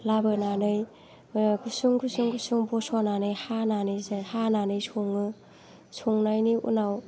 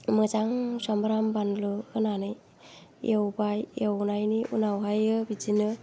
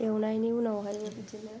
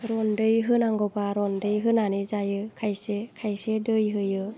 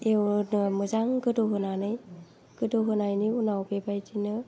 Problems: none marked